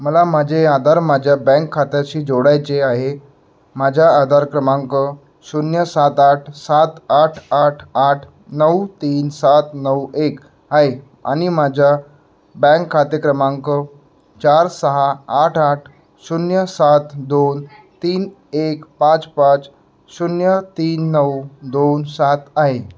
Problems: none marked